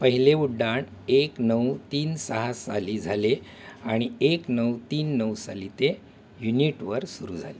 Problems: background sounds at intervals